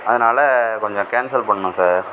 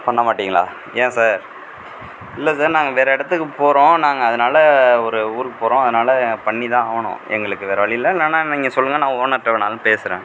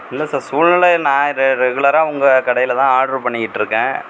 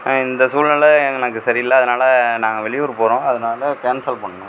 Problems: background sounds at intervals